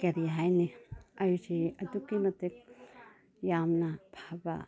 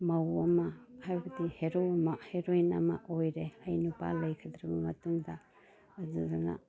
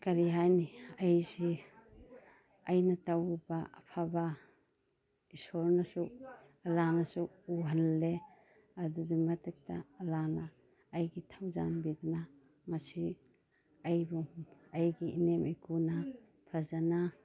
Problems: none marked